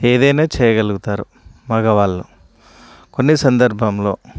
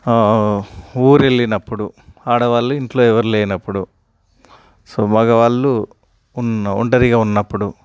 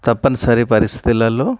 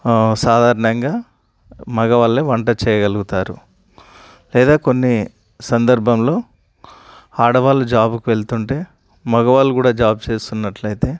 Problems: none marked